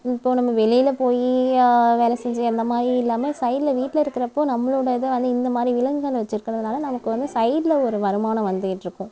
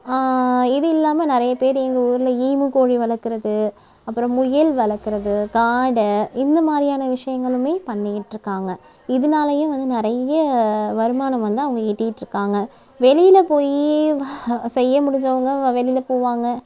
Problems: background sounds at intervals